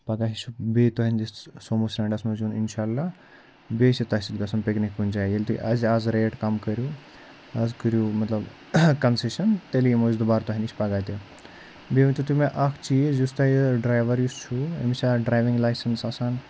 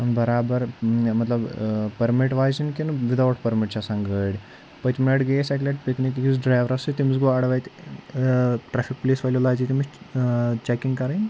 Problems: none marked